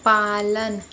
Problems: none marked